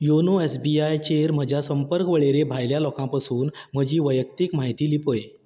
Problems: background sounds at intervals